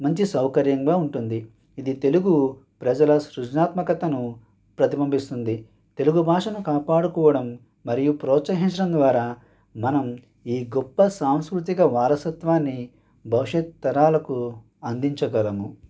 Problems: none marked